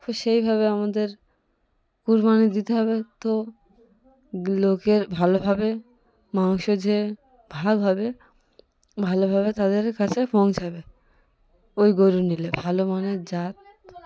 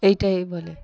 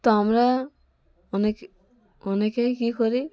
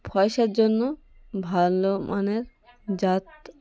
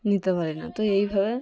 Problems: constant background noise, continuous background conversations